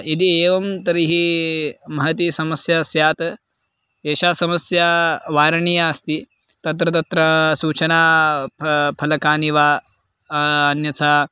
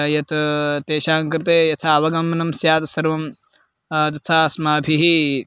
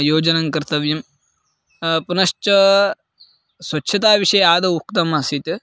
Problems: constant background noise